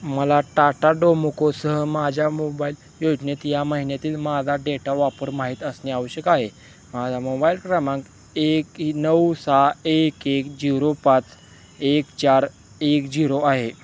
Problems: constant background noise